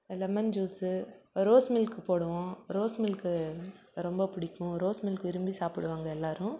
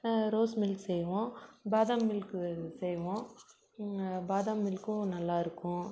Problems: background sounds at intervals